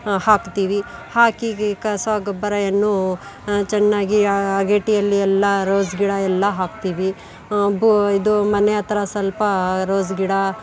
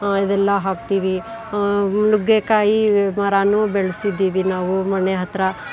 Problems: background sounds at intervals, background conversations at intervals